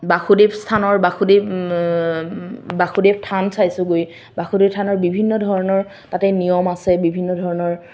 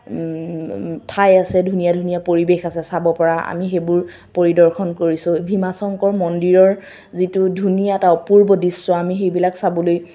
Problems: none marked